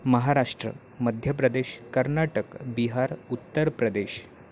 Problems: background sounds at intervals